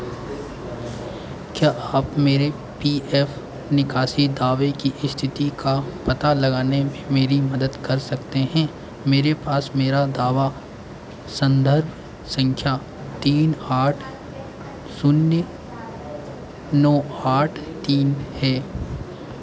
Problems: constant background noise